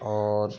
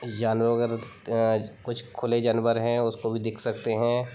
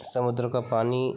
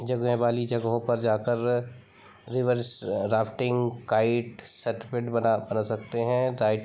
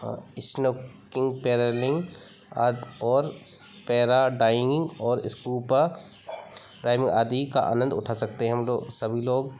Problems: background sounds at intervals, background conversations at intervals